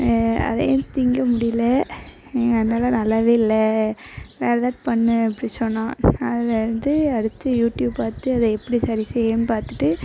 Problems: none marked